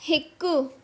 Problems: constant background noise